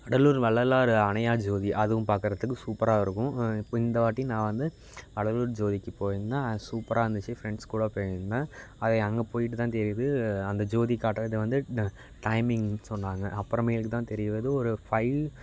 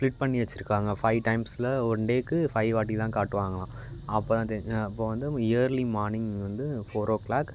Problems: background sounds at intervals